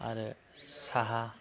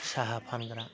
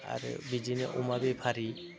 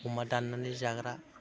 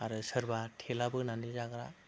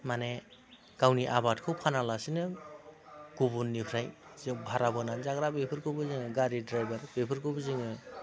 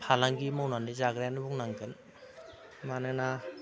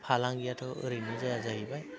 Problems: none marked